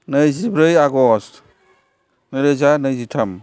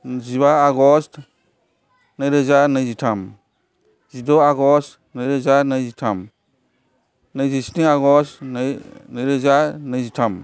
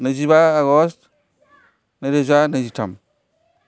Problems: constant background noise